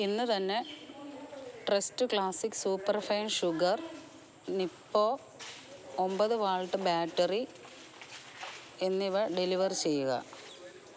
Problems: background sounds at intervals